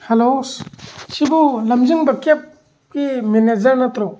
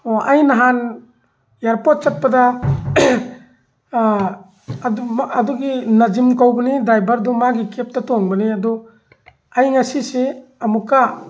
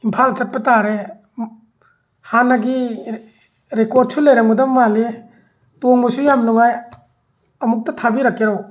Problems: background sounds at intervals